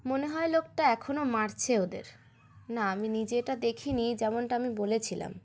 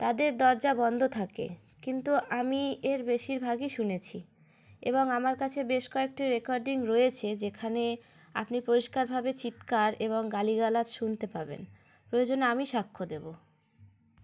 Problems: none marked